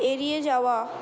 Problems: none marked